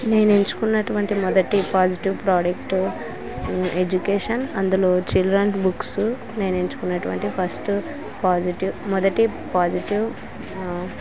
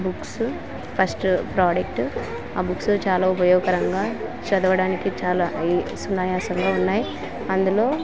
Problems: constant background noise